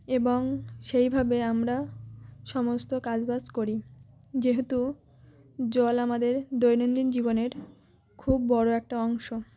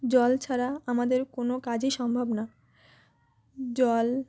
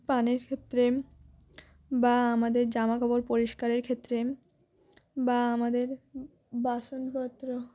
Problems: none marked